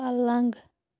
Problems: background sounds at intervals